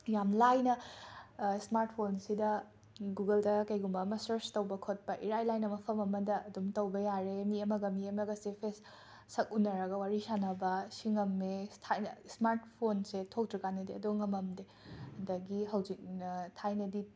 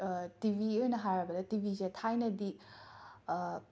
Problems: none marked